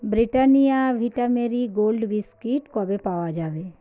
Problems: background conversations at intervals